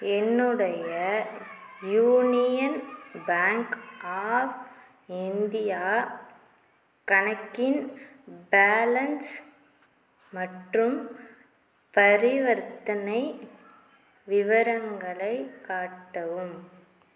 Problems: none marked